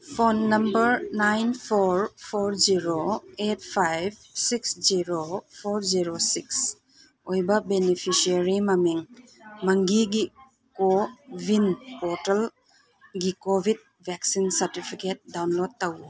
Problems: background sounds at intervals